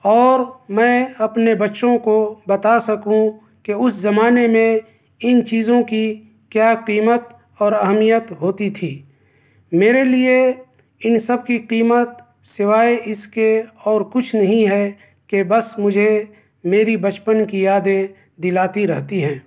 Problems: none marked